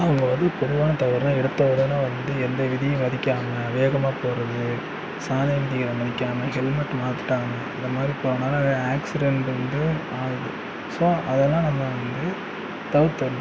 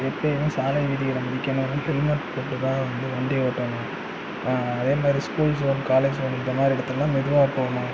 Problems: background sounds at intervals